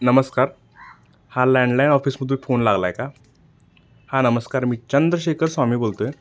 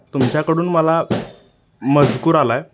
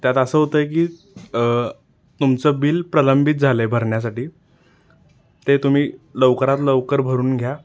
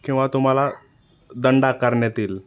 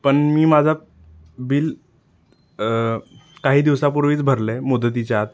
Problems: none marked